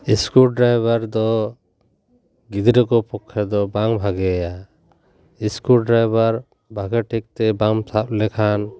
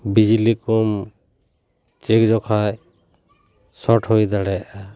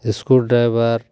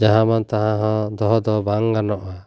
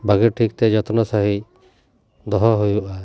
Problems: background sounds at intervals